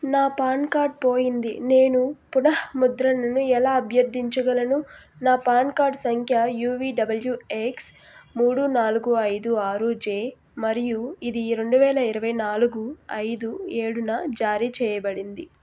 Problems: constant background noise